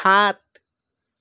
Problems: background conversations at intervals